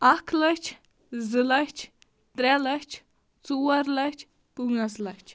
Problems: background sounds at intervals